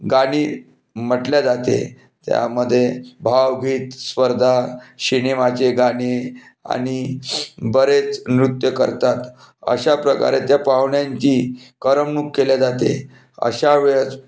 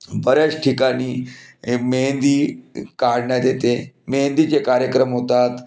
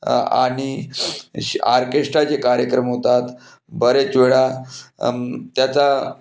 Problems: background sounds at intervals